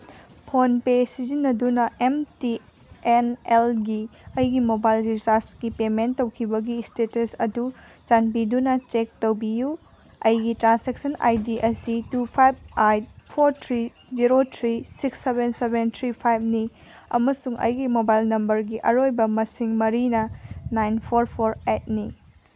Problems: none marked